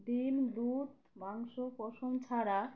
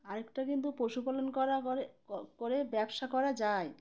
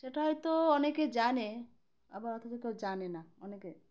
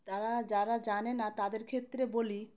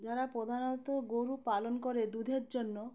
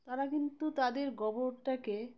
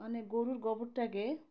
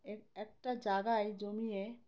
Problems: constant background noise, background conversations at intervals